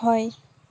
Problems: constant background noise